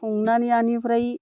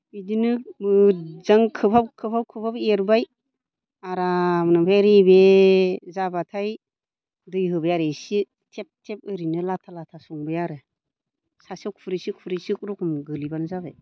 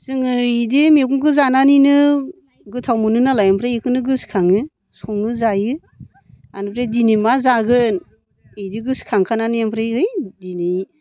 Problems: low volume